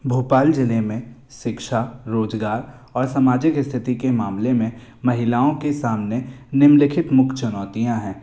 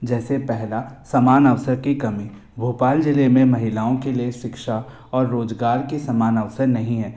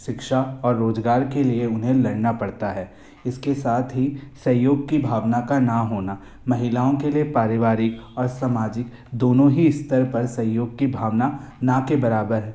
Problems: none marked